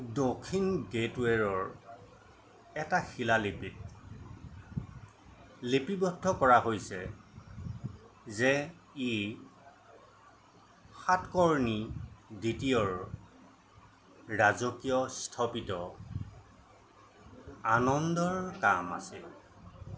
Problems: constant background noise